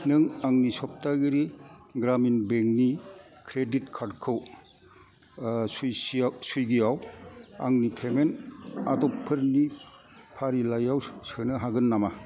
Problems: constant background noise